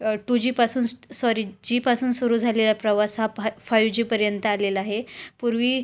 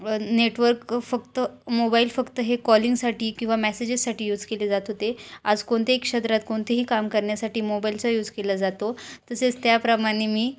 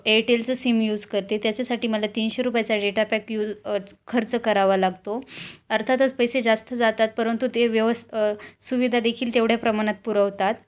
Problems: constant background noise, continuous background conversations